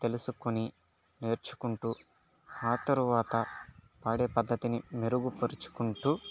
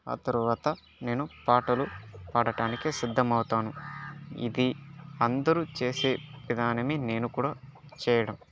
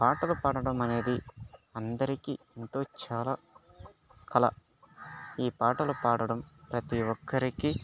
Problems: background sounds at intervals, low volume